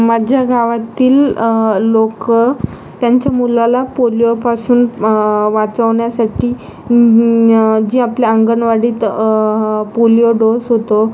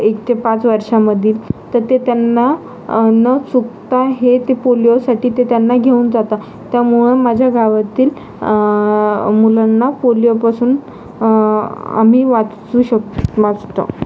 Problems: constant background noise